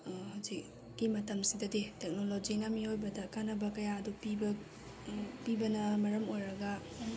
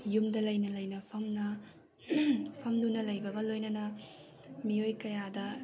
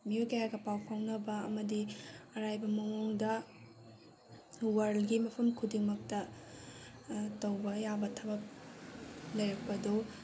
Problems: none marked